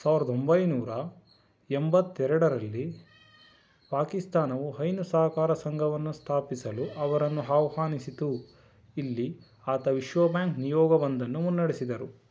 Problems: background sounds at intervals